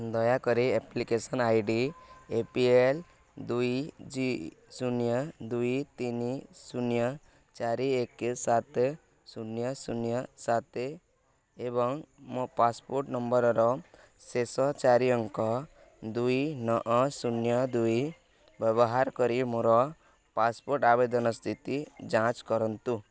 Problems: none marked